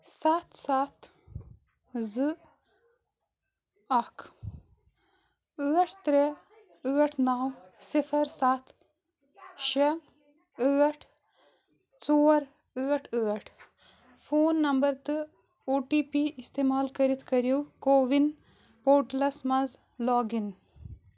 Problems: background sounds at intervals